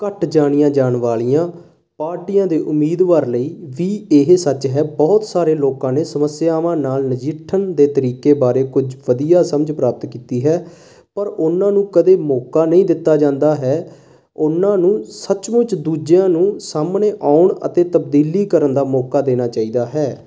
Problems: constant background noise